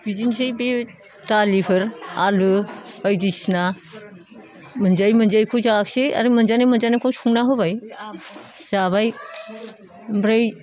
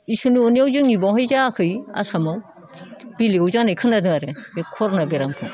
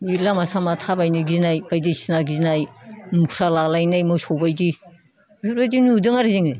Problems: none marked